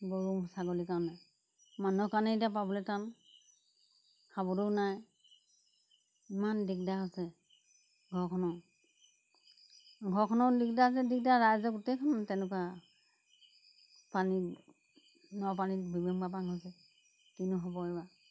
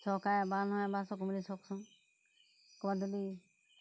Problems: background sounds at intervals